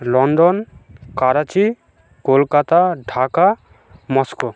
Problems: background sounds at intervals